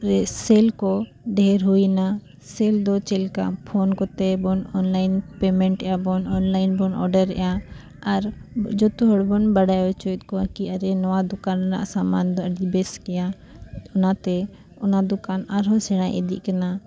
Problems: background sounds at intervals, continuous background conversations